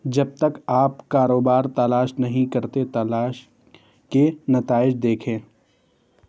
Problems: none marked